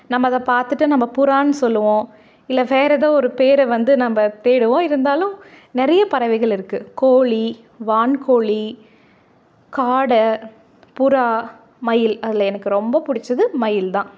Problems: none marked